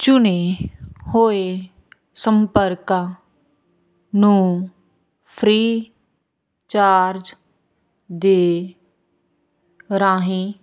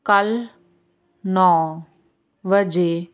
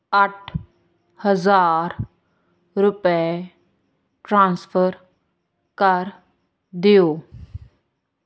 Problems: constant background noise